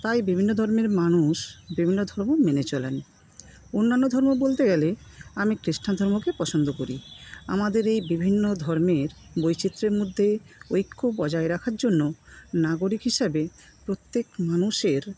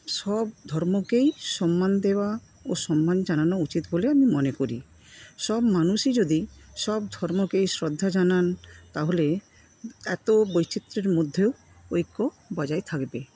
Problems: background sounds at intervals